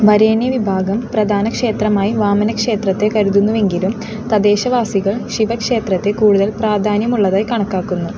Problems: constant background noise